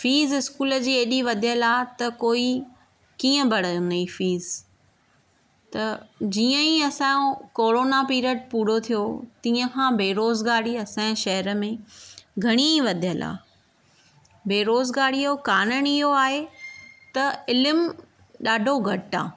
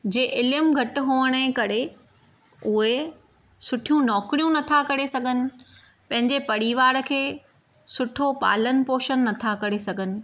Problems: none marked